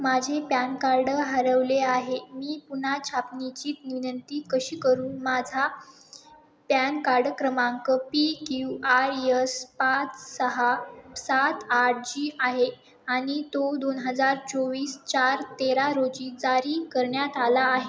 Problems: constant background noise